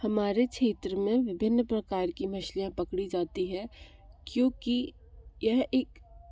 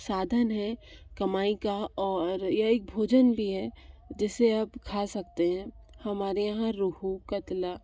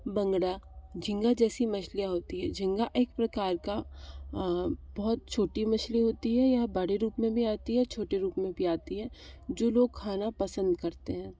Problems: none marked